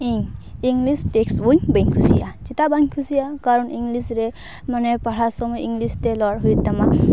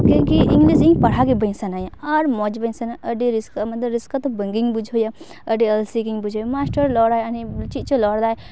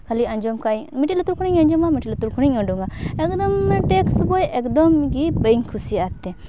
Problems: background sounds at intervals